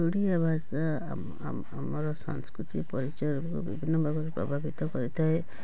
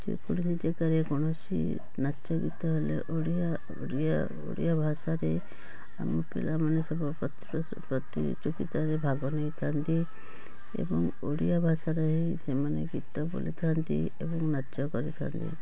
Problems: constant background noise, continuous background conversations